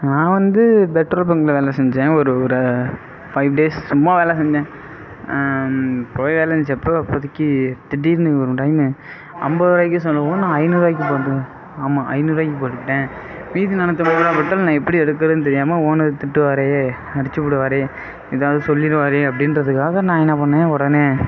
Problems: background sounds at intervals